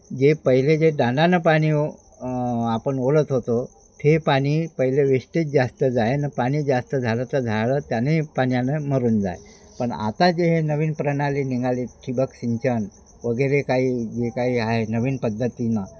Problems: none marked